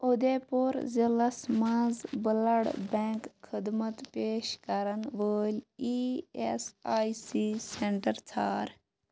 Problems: background sounds at intervals